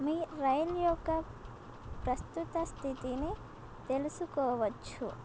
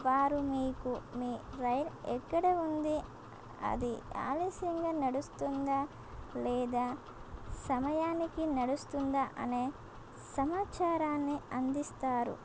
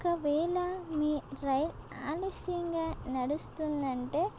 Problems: constant background noise